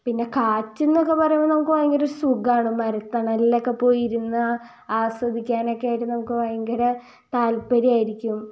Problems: low volume